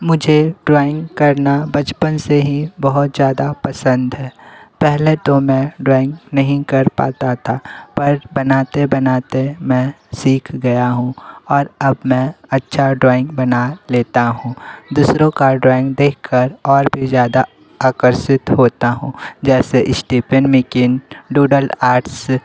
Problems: constant background noise, background conversations at intervals